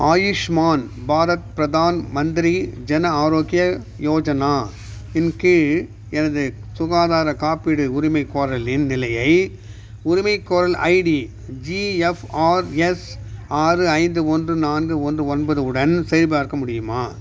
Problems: none marked